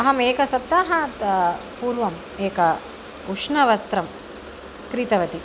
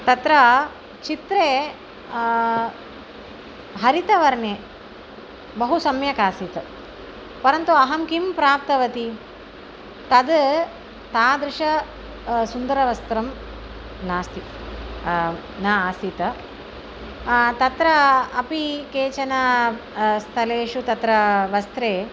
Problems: constant background noise